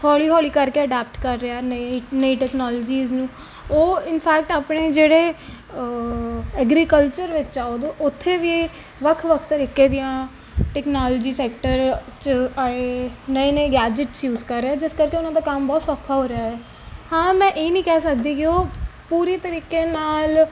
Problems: background sounds at intervals